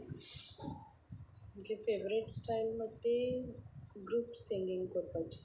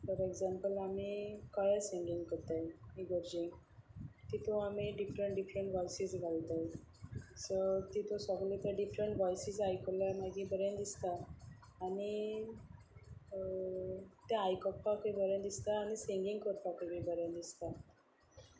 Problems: none marked